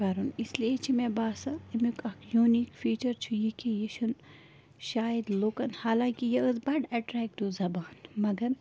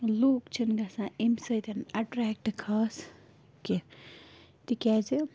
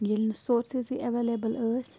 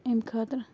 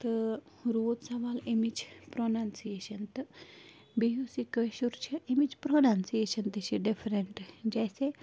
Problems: constant background noise